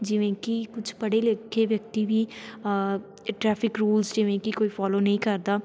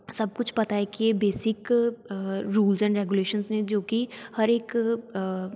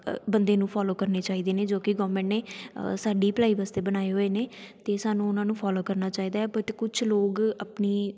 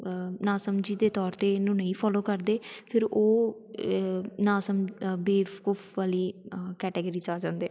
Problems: background sounds at intervals, continuous background conversations